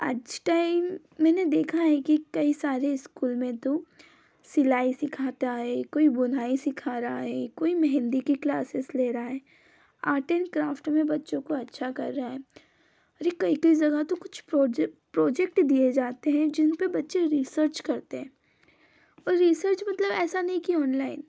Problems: none marked